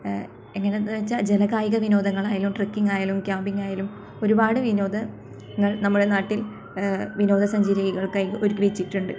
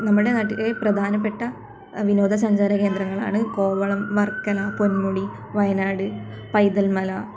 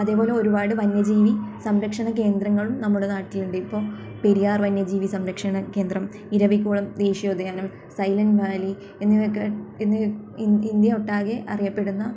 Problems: background sounds at intervals